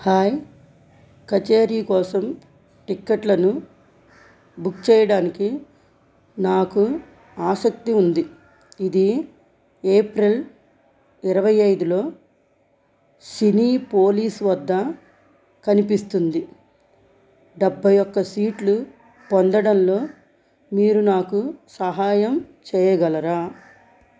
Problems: constant background noise